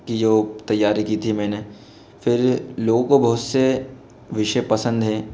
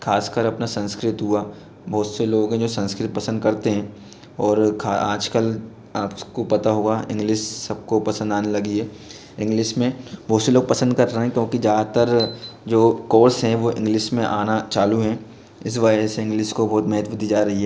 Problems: constant background noise